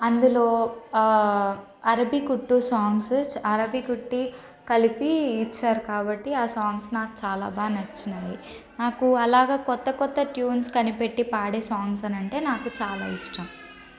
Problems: constant background noise, background conversations at intervals